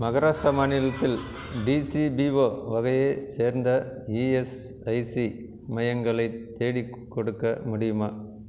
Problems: none marked